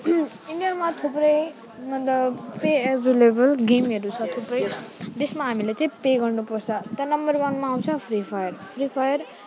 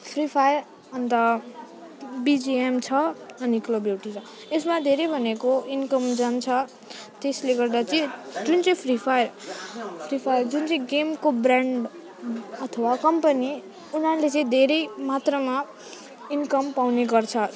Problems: constant background noise, continuous background conversations